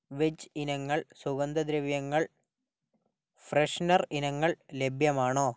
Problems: low volume